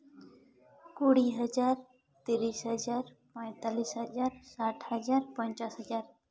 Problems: background sounds at intervals, echo